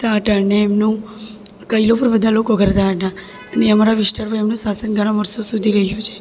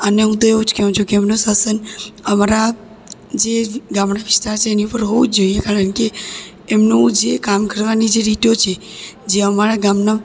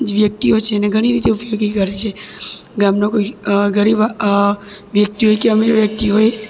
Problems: echo